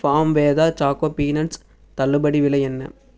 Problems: none marked